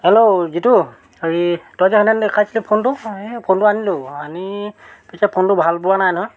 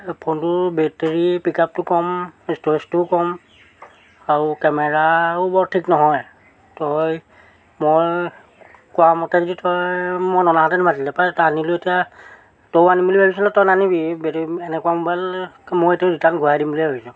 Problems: none marked